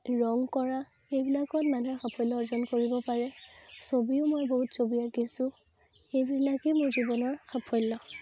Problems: constant background noise